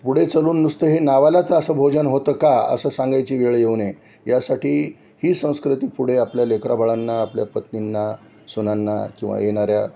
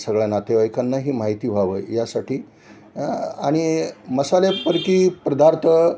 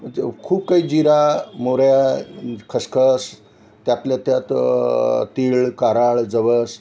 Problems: none marked